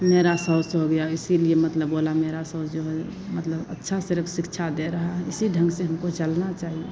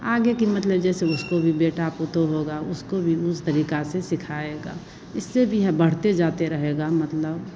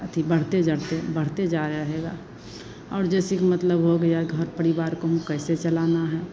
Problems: none marked